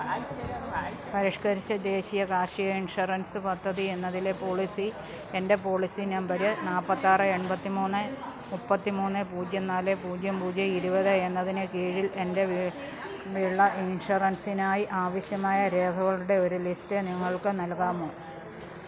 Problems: low volume